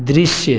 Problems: none marked